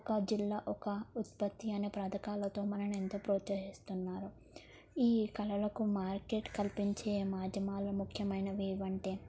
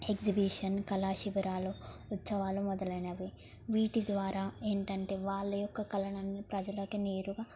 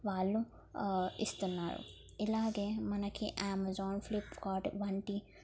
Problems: low volume